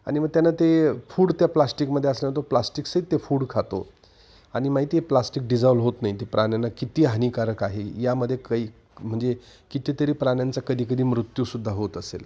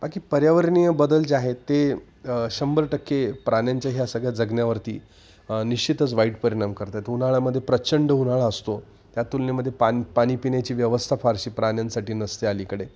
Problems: background sounds at intervals